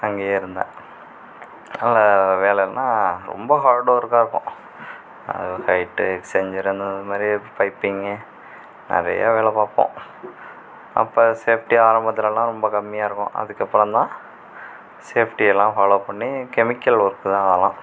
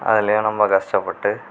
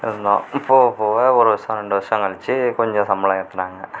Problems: none marked